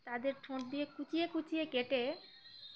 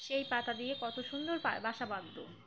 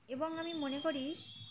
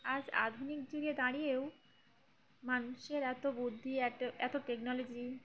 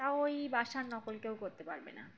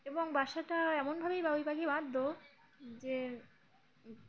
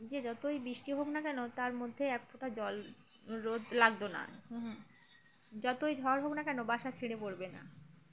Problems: constant background noise, background conversations at intervals